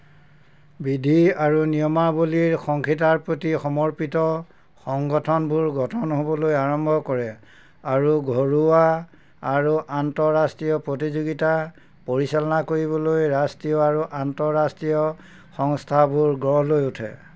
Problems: constant background noise